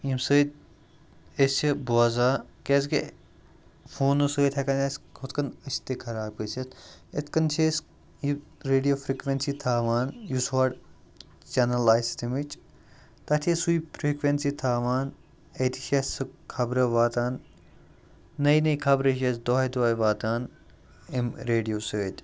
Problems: none marked